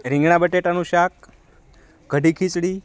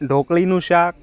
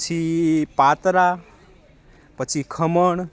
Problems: background conversations at intervals